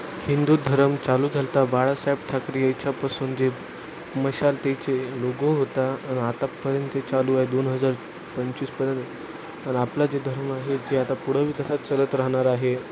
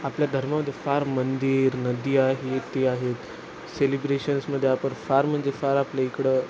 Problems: constant background noise